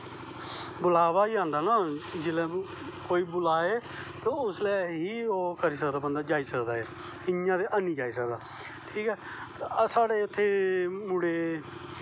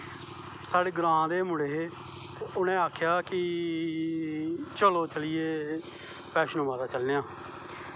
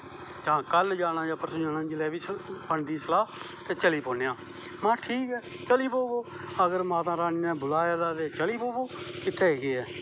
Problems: constant background noise